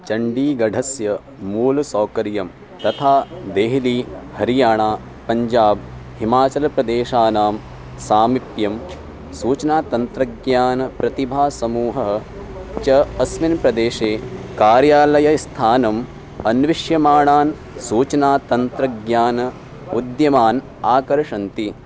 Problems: constant background noise